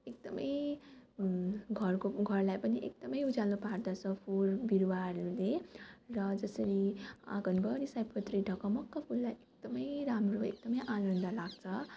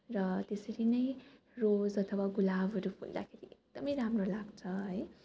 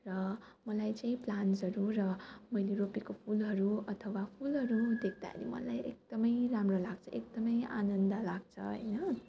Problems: background sounds at intervals, background conversations at intervals